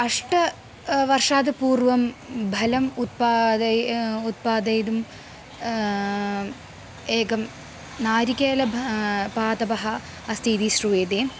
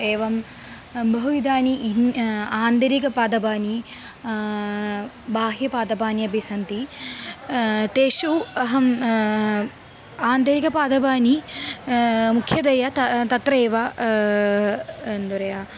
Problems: constant background noise